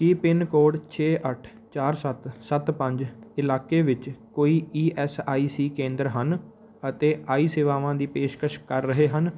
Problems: none marked